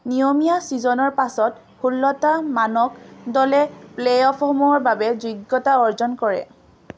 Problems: none marked